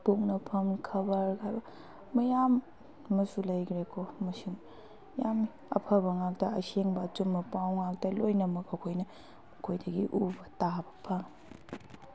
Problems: background conversations at intervals